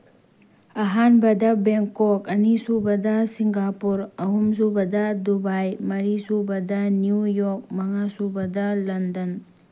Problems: none marked